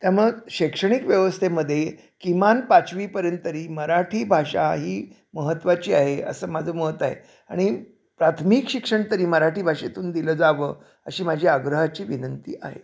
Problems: none marked